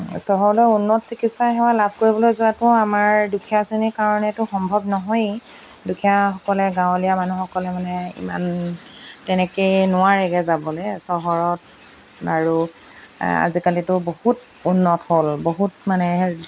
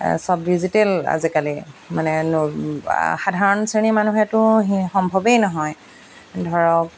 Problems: background sounds at intervals